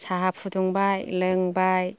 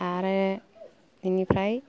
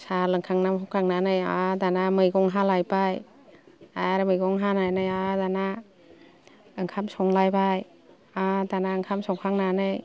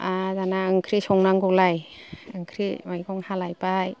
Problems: low volume